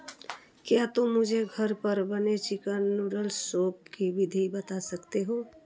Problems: background sounds at intervals